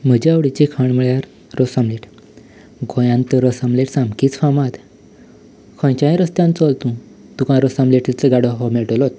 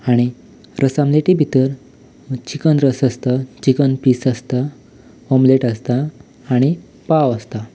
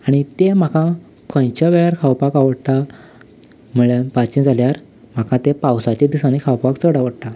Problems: background sounds at intervals